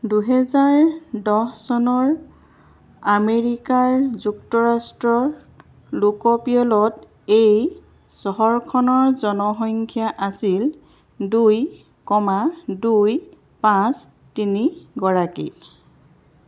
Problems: none marked